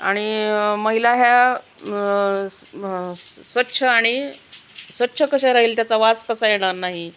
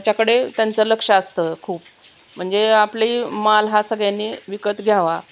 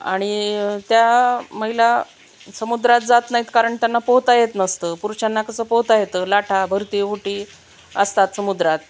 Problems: none marked